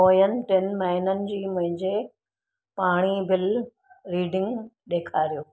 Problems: none marked